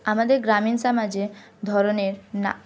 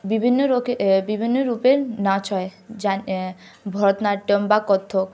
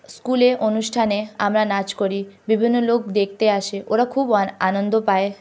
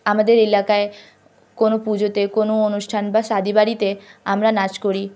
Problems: constant background noise